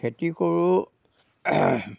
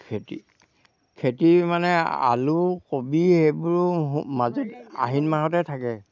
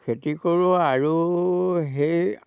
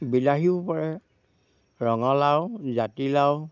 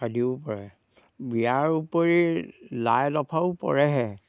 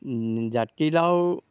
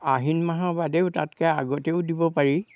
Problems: background sounds at intervals